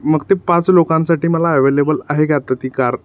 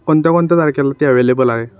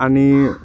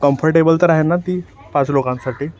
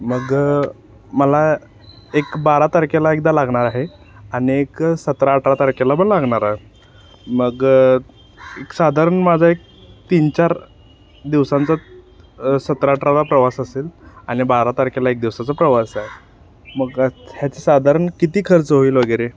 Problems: constant background noise